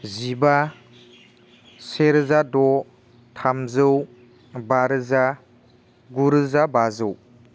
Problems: constant background noise